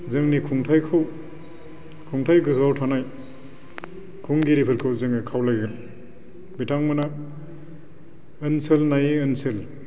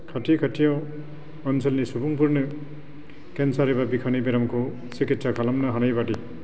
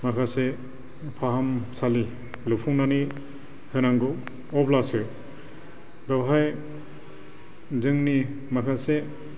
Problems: constant background noise